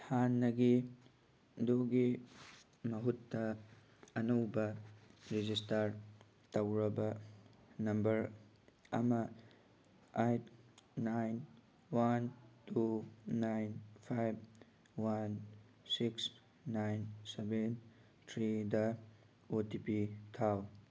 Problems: none marked